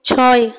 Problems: background sounds at intervals